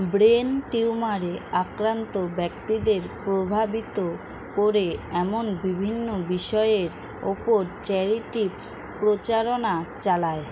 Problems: constant background noise